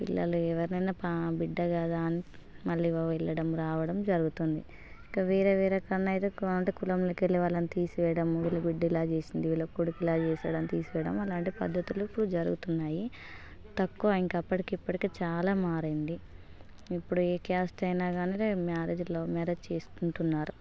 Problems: constant background noise